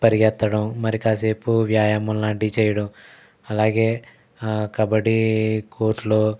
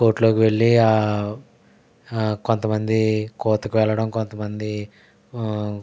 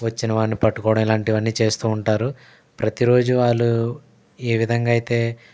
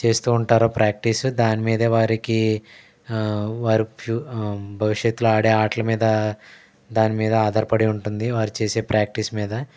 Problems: none marked